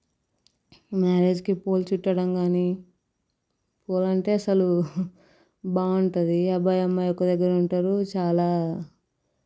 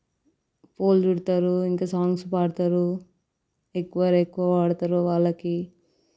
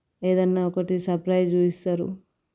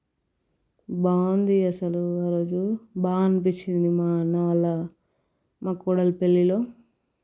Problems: background sounds at intervals